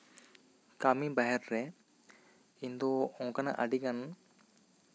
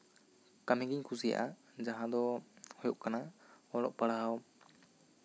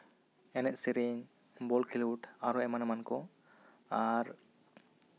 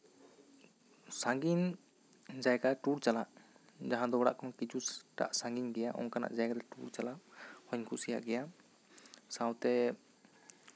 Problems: none marked